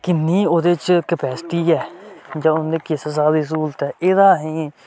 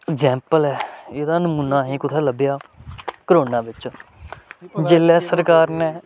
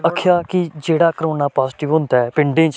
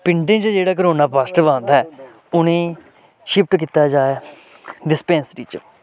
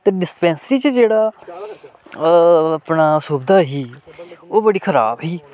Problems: constant background noise